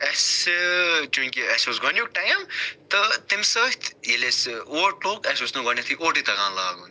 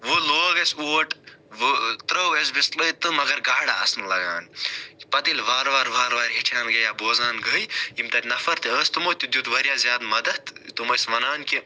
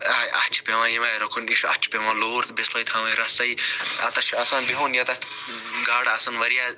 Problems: none marked